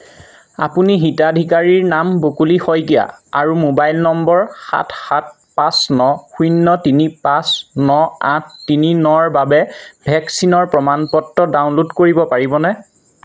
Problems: constant background noise